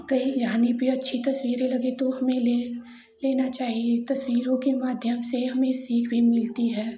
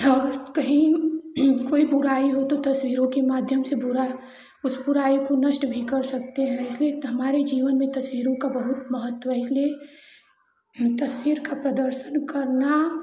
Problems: none marked